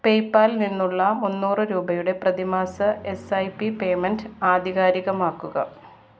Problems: background sounds at intervals